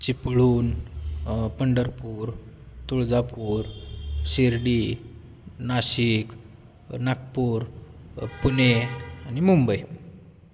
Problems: constant background noise